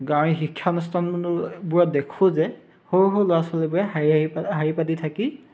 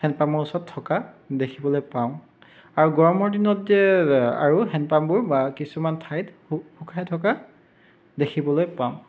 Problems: background sounds at intervals